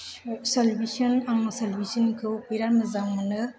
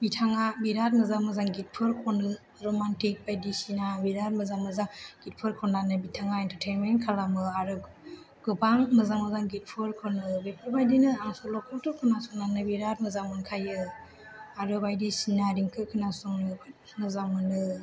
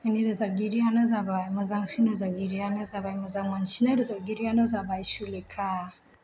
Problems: low volume